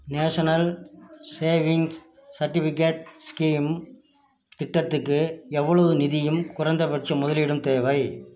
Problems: none marked